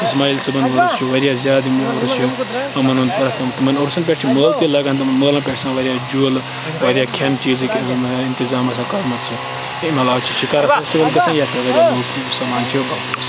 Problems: constant background noise, background conversations at intervals